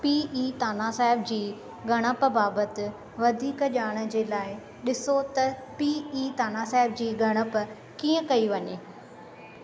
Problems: constant background noise